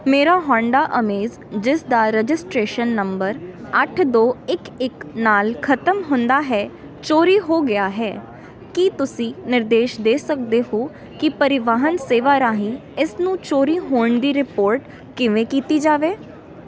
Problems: none marked